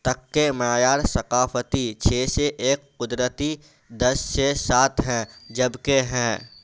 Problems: constant background noise